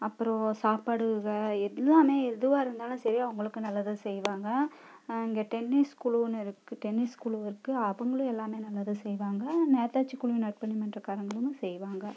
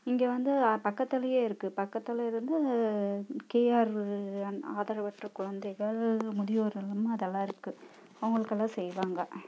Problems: low volume